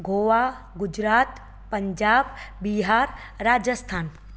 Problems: constant background noise, echo